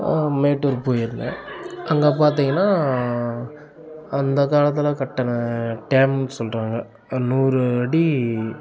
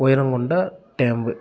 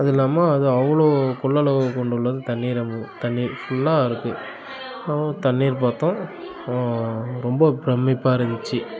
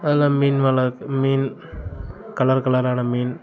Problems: none marked